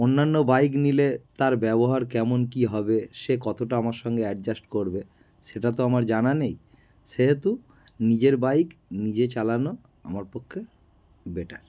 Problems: none marked